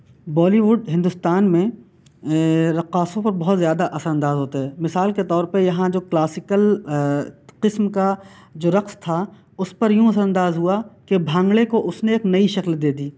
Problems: constant background noise